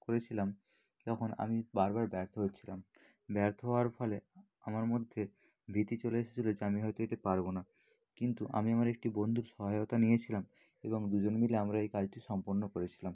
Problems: background sounds at intervals, low volume